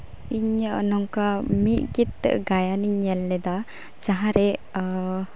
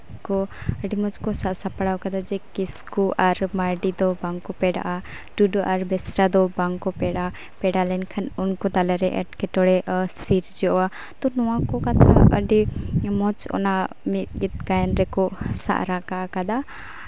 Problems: background conversations at intervals